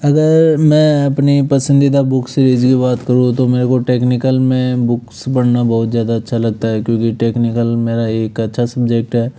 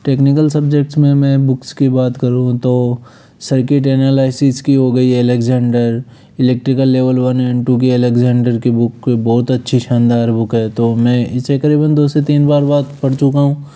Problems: none marked